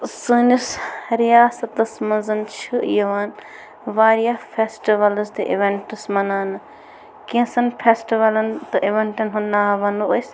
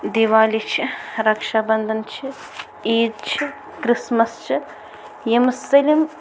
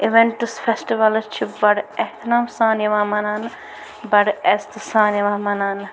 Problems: none marked